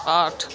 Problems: constant background noise, continuous background conversations